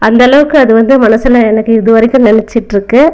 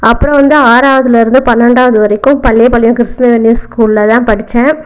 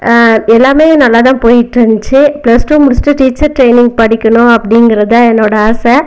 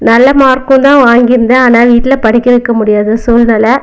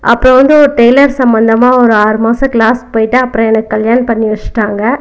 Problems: background conversations at intervals